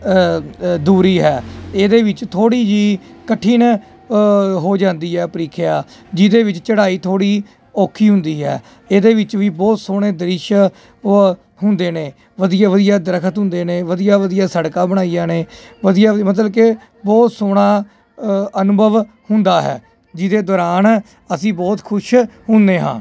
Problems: constant background noise